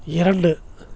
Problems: none marked